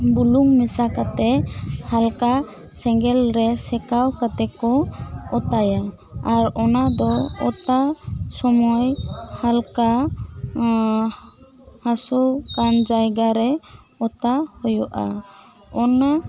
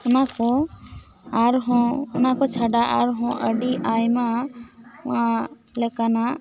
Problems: background conversations at intervals